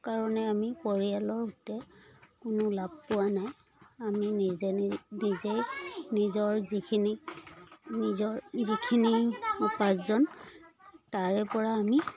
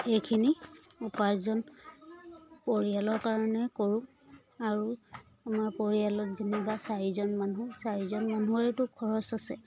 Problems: background sounds at intervals